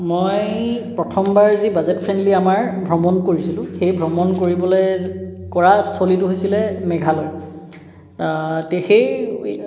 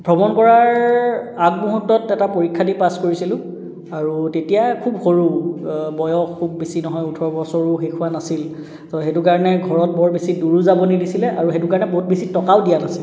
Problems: background sounds at intervals, echo